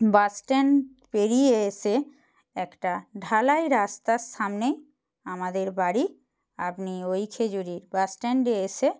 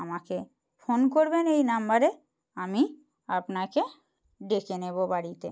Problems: constant background noise